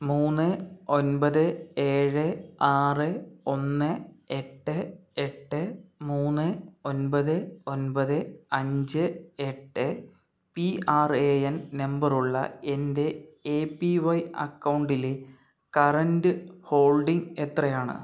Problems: none marked